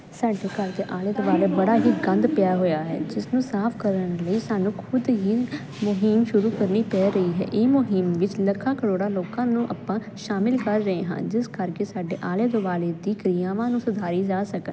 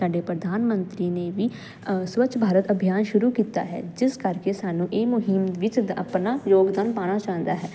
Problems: constant background noise